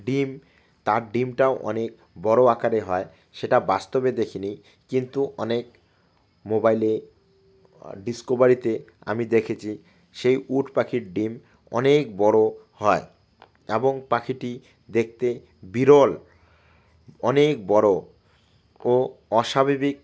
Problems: none marked